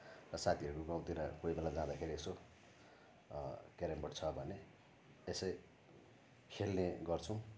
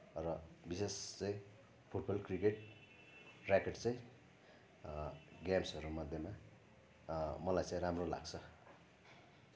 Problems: none marked